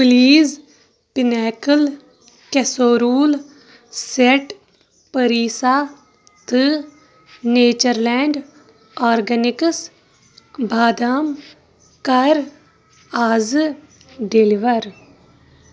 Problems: constant background noise